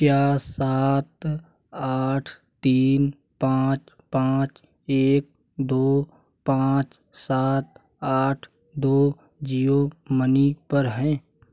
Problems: none marked